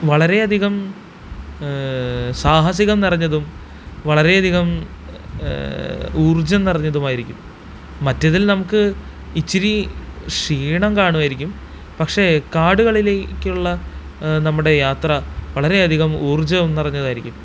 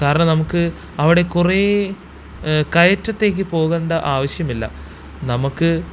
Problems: constant background noise